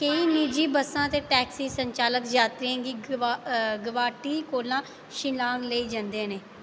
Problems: none marked